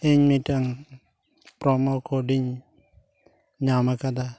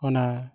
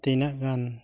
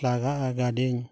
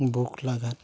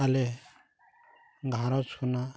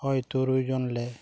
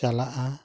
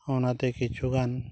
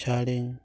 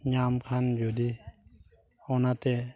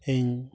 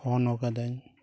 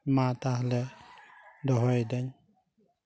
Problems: background sounds at intervals